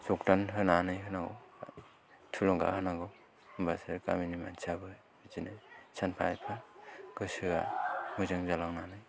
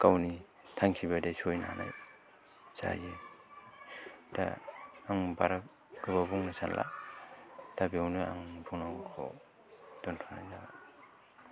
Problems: background sounds at intervals, continuous background conversations, low volume